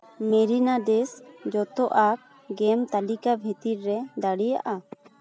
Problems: background conversations at intervals